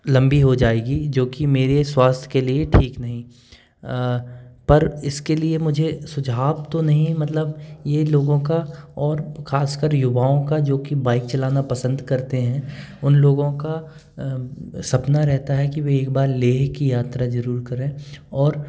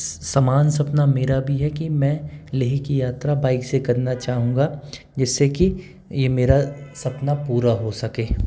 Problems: constant background noise